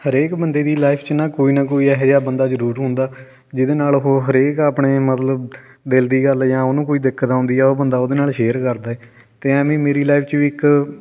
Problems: none marked